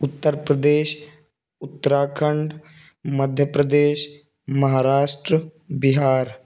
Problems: constant background noise